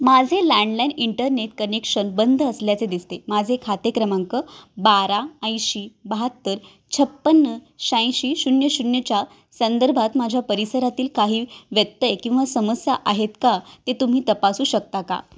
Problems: none marked